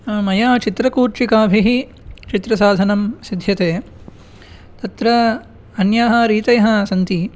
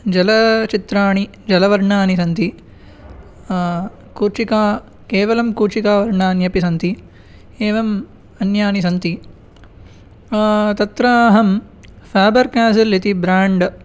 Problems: none marked